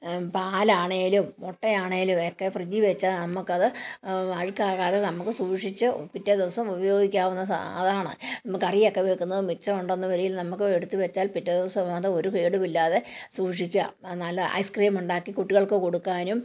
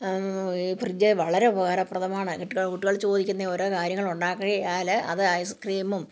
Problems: background sounds at intervals